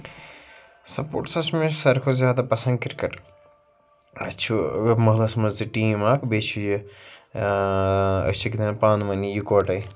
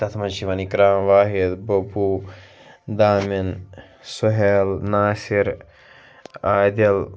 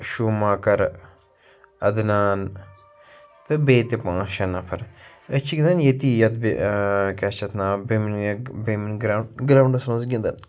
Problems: constant background noise